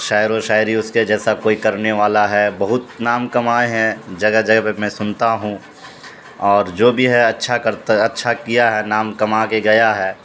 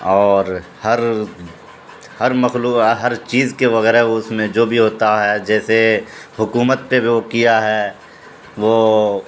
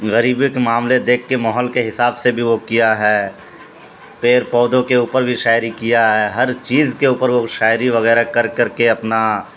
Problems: constant background noise